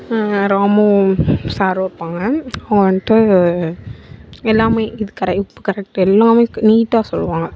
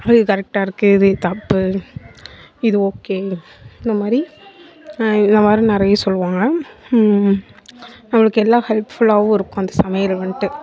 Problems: background sounds at intervals, background conversations at intervals